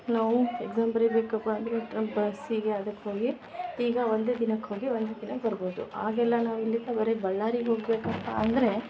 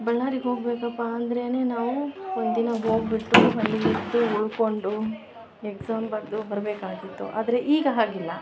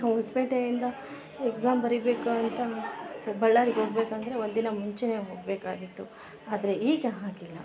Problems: background sounds at intervals